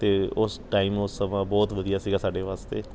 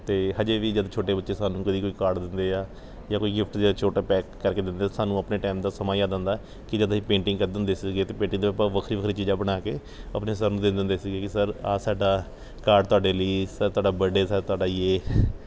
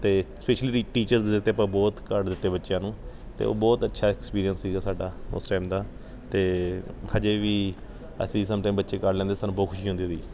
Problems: none marked